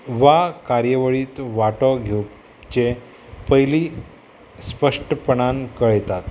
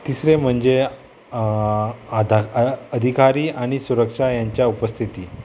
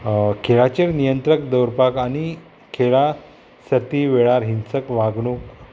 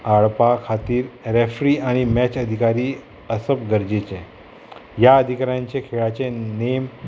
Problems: constant background noise